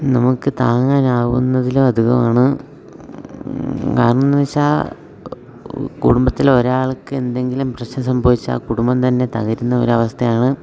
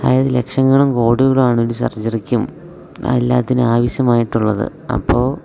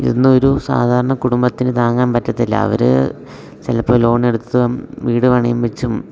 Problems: none marked